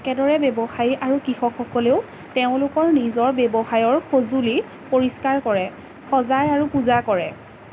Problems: constant background noise